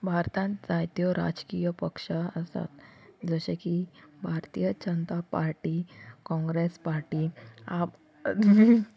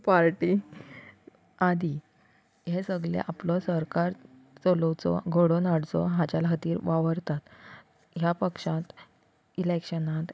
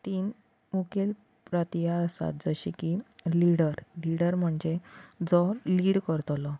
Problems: constant background noise